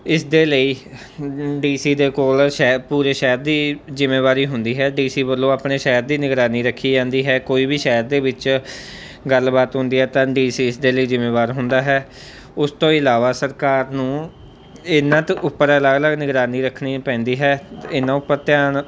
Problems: none marked